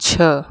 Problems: constant background noise